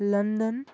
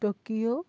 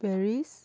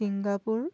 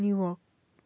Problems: none marked